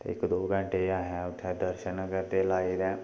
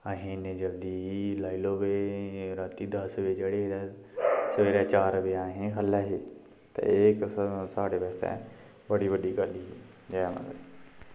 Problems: none marked